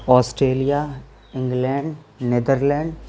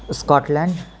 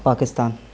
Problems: constant background noise